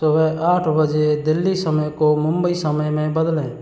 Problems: constant background noise